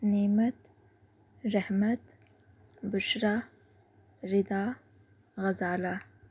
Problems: low volume